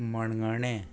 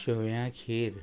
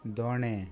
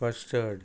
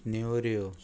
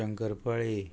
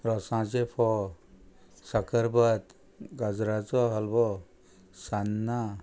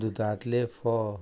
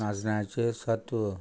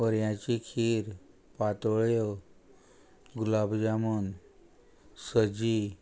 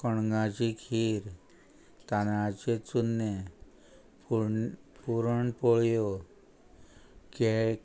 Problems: constant background noise